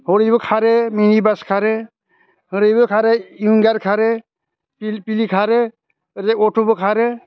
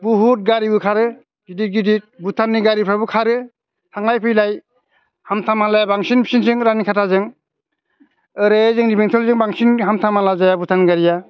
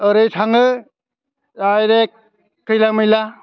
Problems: constant background noise